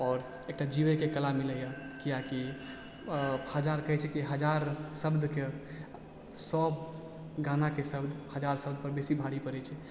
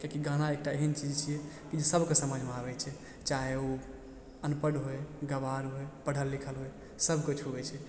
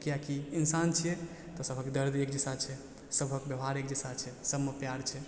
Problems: background sounds at intervals, background conversations at intervals, low volume